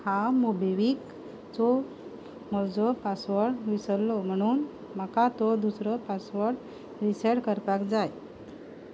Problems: background sounds at intervals